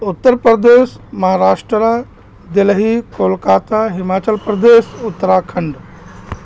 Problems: constant background noise